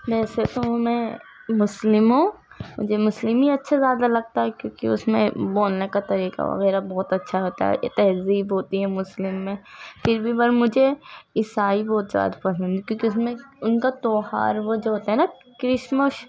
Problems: constant background noise